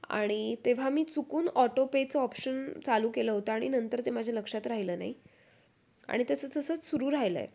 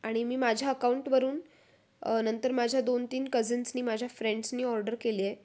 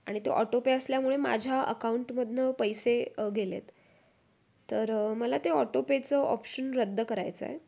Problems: constant background noise, background conversations at intervals